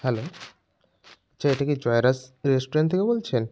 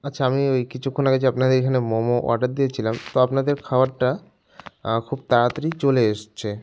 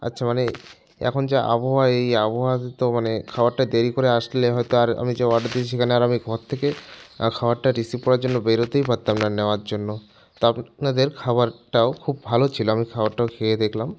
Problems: none marked